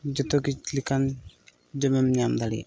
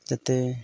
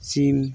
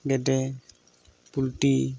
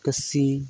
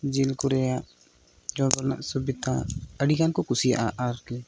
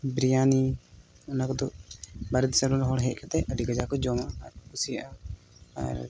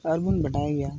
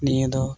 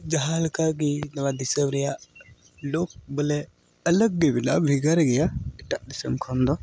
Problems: background sounds at intervals